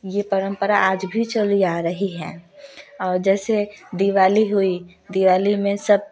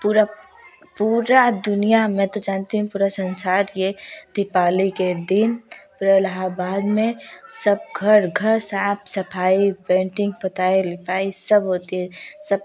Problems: none marked